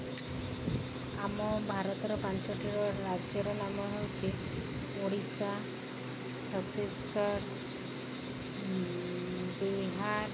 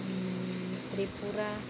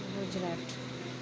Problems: constant background noise